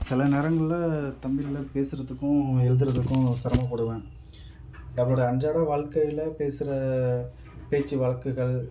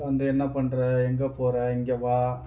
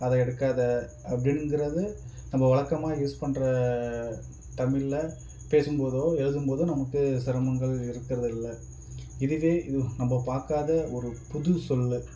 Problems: background sounds at intervals